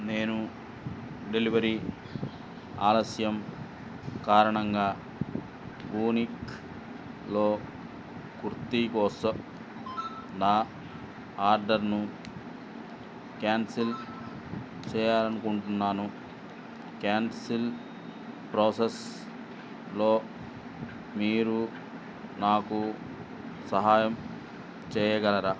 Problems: constant background noise, low volume